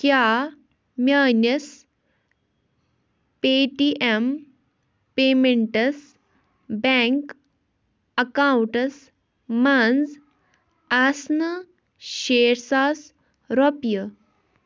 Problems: none marked